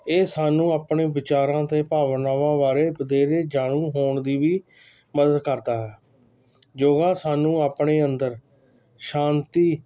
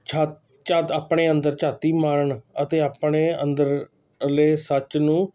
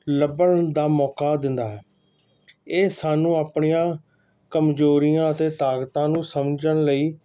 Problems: constant background noise